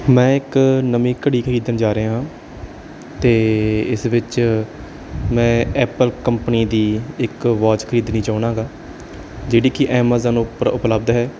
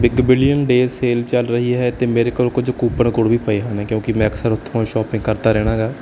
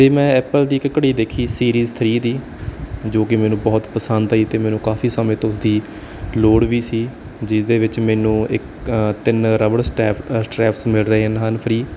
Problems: background sounds at intervals